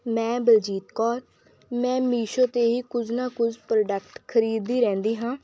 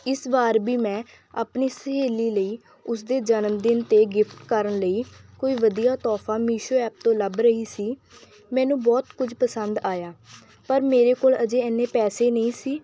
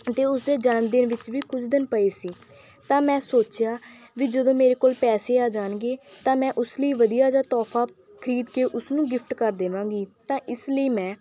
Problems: background sounds at intervals